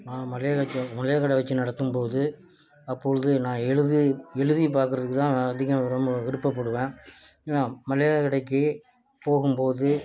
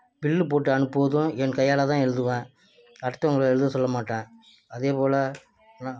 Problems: none marked